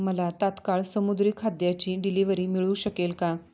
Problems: background sounds at intervals